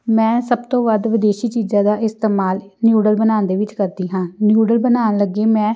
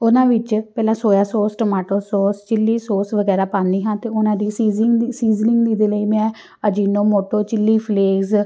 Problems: none marked